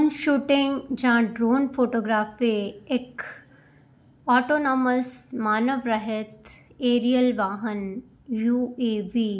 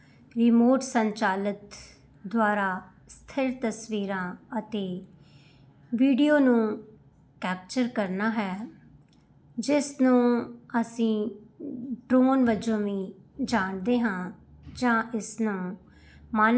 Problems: none marked